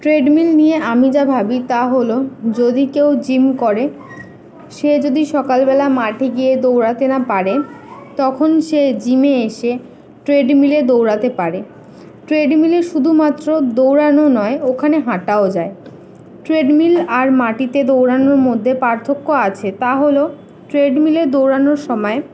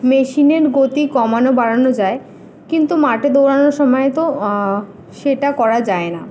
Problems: constant background noise, background conversations at intervals